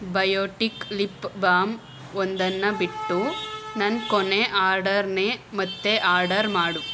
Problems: background sounds at intervals